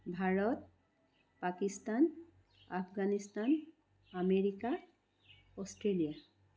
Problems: none marked